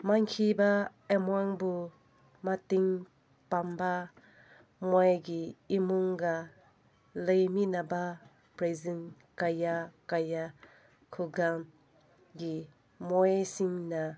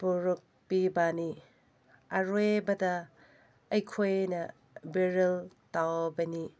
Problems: none marked